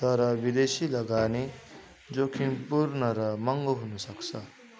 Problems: continuous background conversations